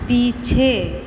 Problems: constant background noise